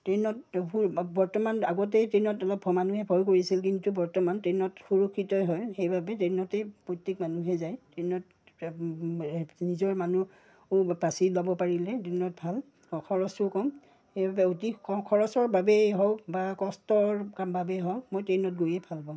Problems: none marked